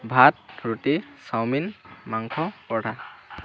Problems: none marked